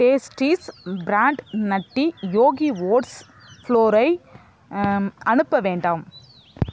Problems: constant background noise